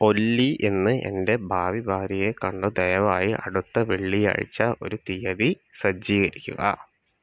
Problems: none marked